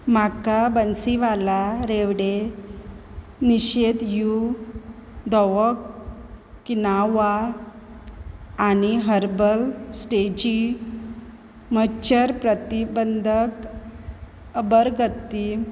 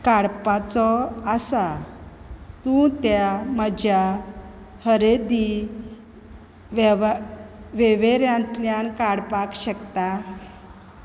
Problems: constant background noise